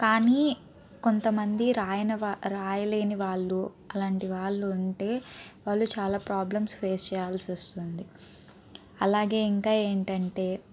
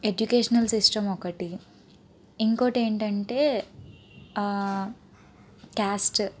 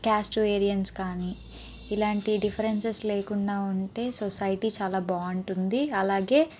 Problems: none marked